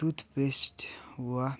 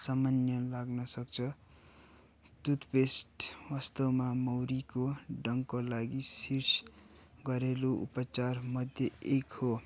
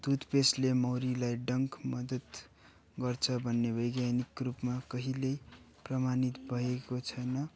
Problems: none marked